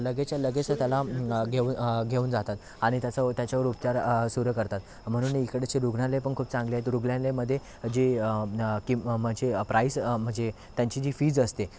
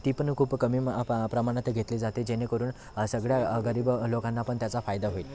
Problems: constant background noise, background conversations at intervals